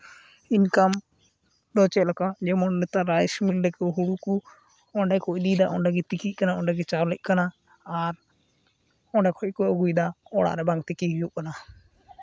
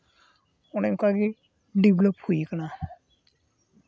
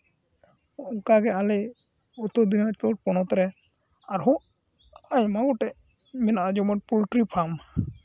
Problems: constant background noise